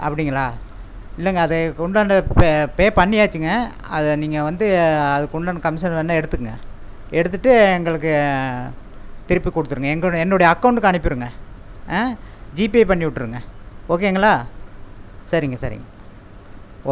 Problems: constant background noise